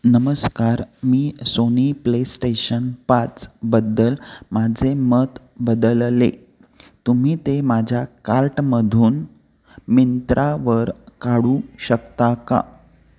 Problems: constant background noise